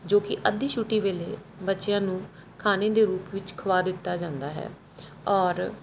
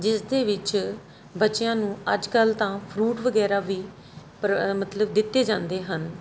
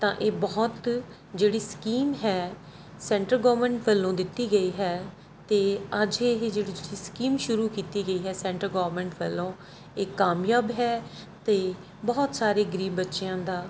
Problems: background sounds at intervals